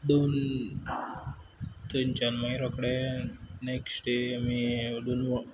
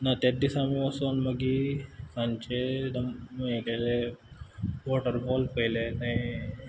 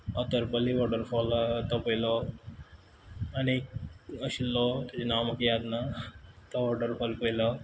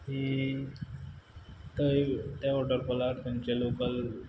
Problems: none marked